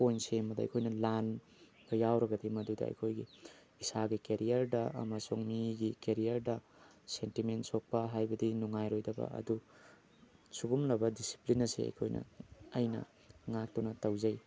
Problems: background sounds at intervals